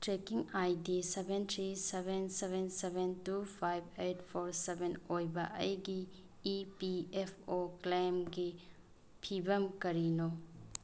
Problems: background sounds at intervals